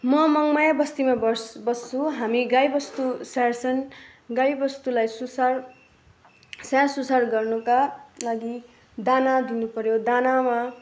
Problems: background sounds at intervals